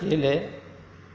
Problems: background conversations at intervals